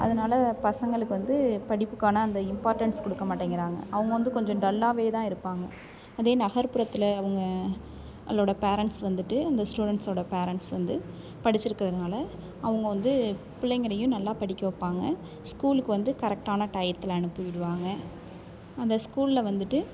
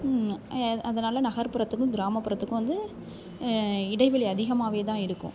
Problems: constant background noise